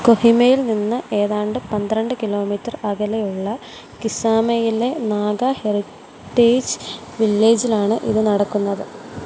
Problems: constant background noise